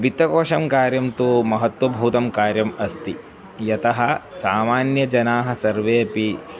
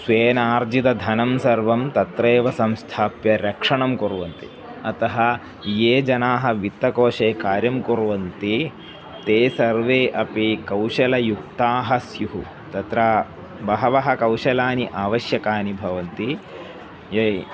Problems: none marked